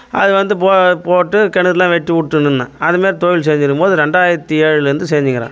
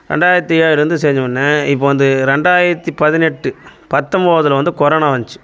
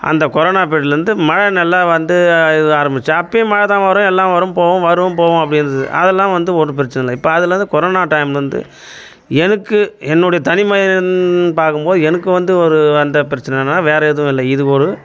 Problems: constant background noise